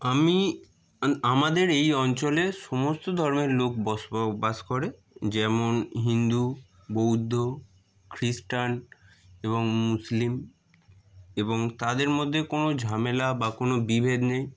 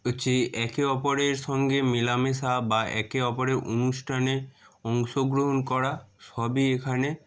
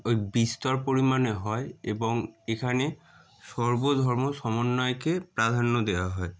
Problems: none marked